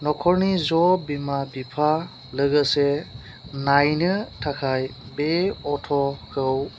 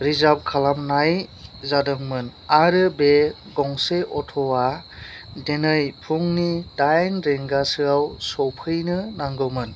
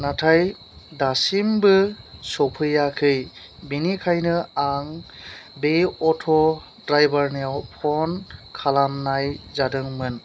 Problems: none marked